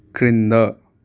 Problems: constant background noise